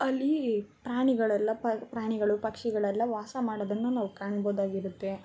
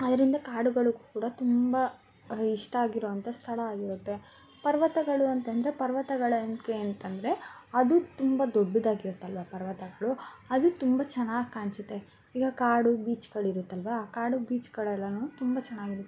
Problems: constant background noise